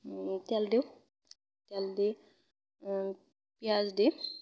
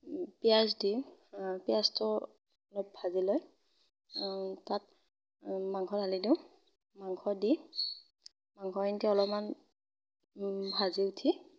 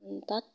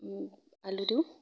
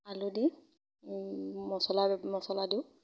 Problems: none marked